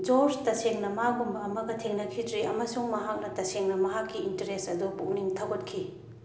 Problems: none marked